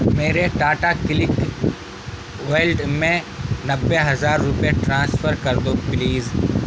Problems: constant background noise